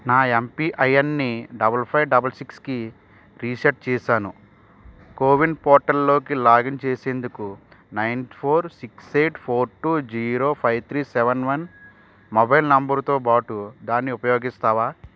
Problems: constant background noise